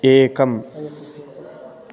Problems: constant background noise, continuous background conversations